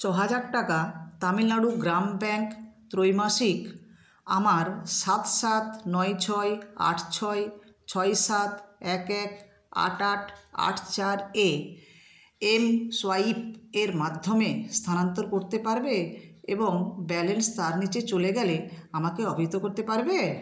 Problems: background sounds at intervals